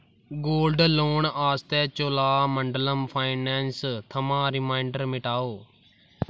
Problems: background sounds at intervals